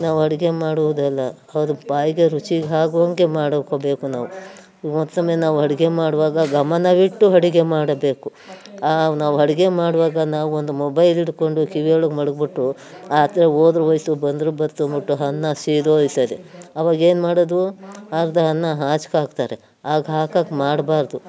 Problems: background sounds at intervals